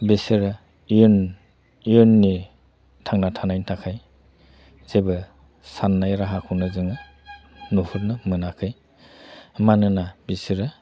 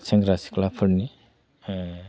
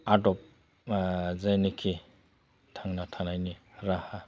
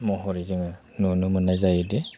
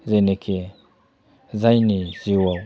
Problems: constant background noise